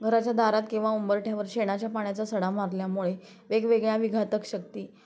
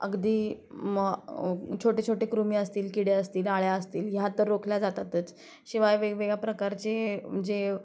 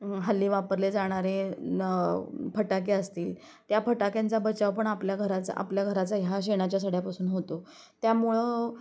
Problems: constant background noise